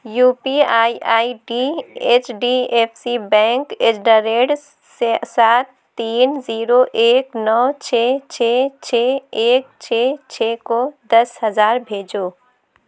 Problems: none marked